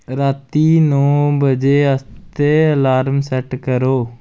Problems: constant background noise